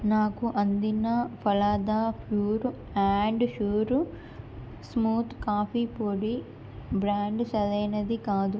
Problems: none marked